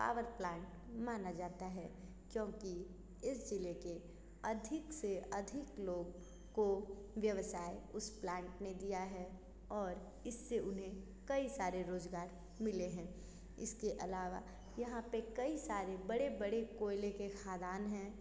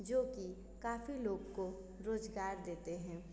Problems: constant background noise